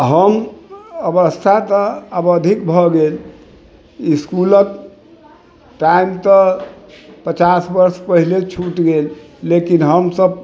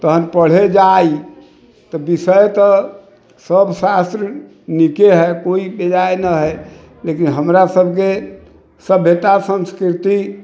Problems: background sounds at intervals